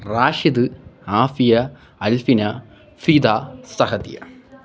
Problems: none marked